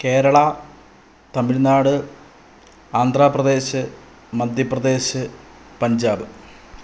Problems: none marked